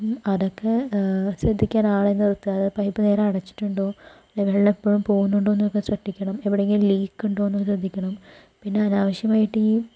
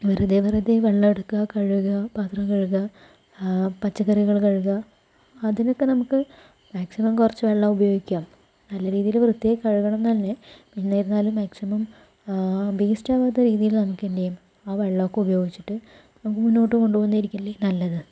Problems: low volume